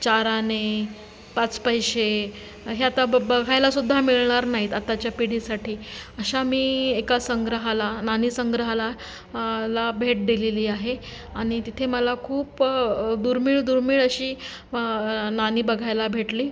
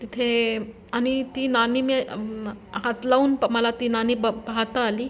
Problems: none marked